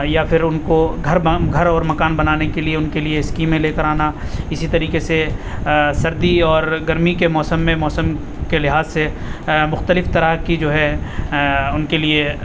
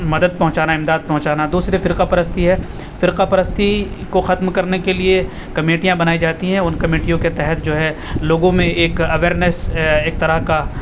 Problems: constant background noise